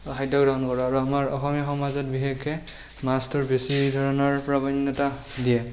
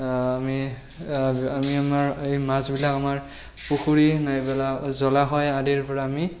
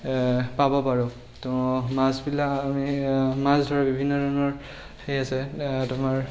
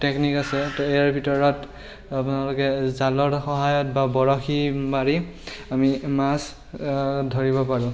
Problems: constant background noise, background conversations at intervals